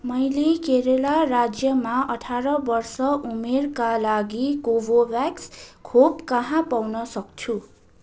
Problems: none marked